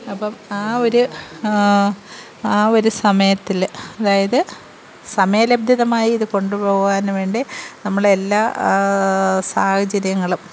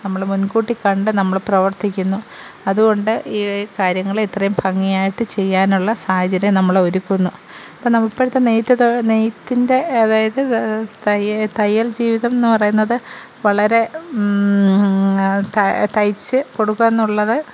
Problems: none marked